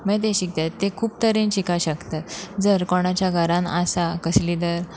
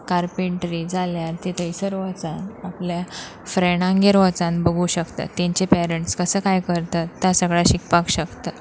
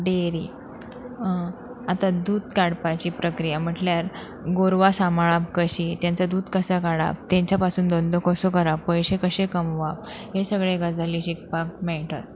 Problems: constant background noise